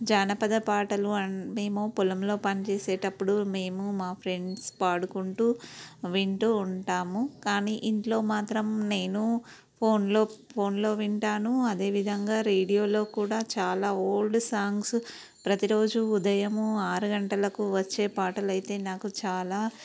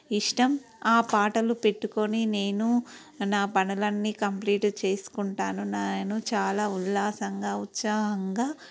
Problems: background sounds at intervals